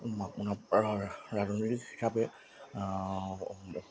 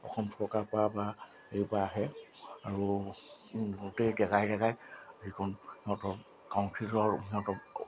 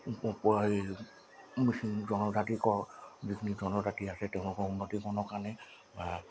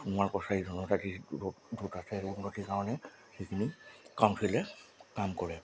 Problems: constant background noise